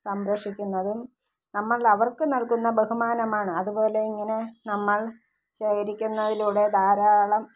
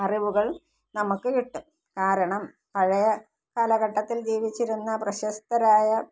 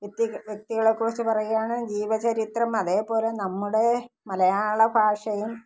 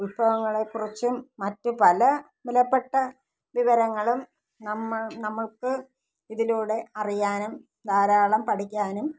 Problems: low volume